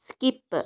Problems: none marked